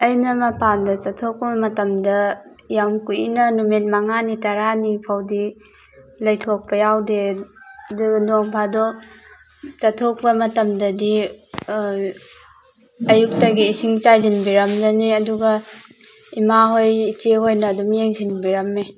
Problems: constant background noise